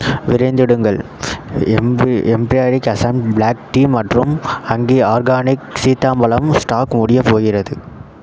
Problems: background sounds at intervals